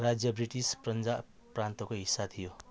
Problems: background sounds at intervals